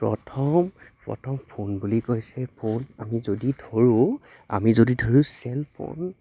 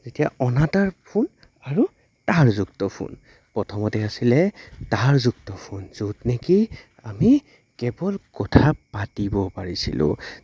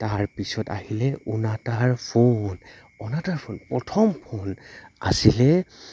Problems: constant background noise